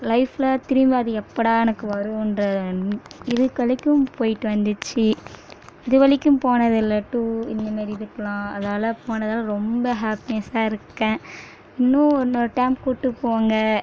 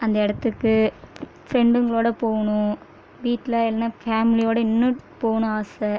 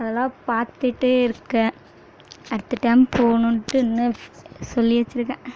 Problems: none marked